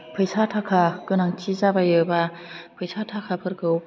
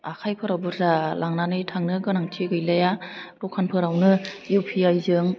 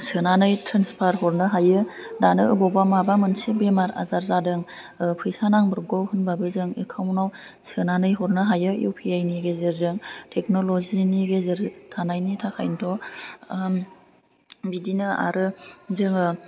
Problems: low volume